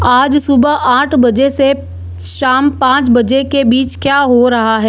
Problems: constant background noise